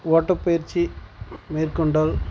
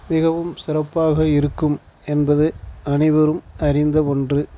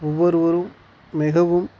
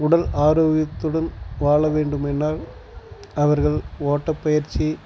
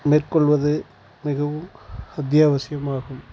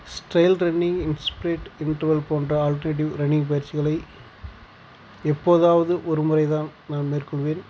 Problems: none marked